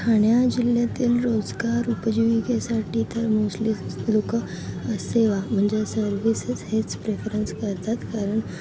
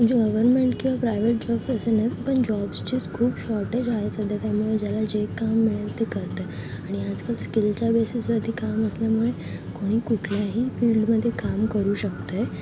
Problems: constant background noise, continuous background conversations